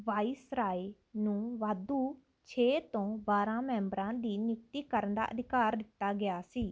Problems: background sounds at intervals